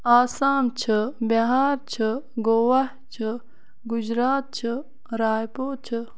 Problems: background sounds at intervals